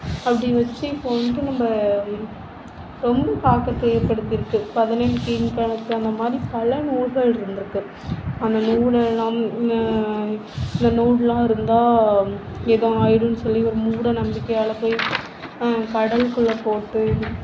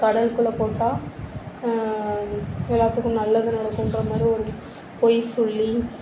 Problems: none marked